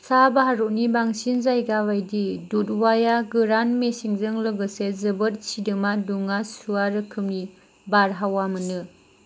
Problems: constant background noise